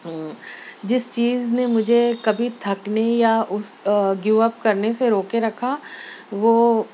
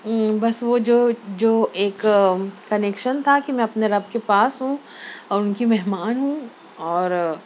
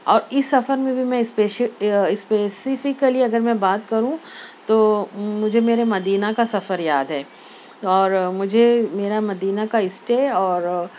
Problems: none marked